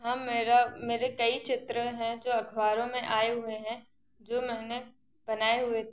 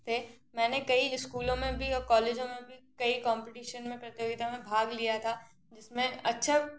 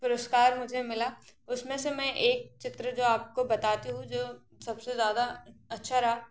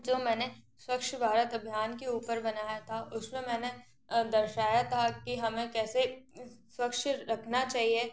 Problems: constant background noise